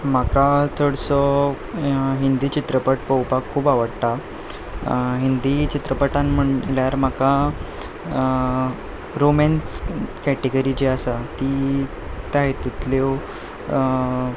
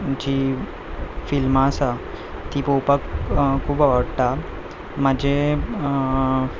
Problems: background sounds at intervals, background conversations at intervals